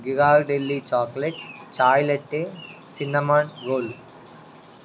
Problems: background conversations at intervals